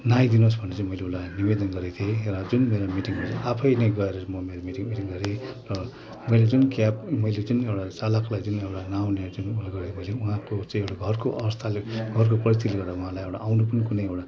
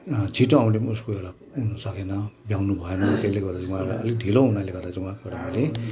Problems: none marked